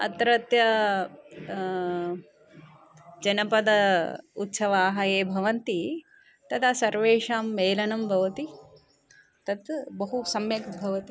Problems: background conversations at intervals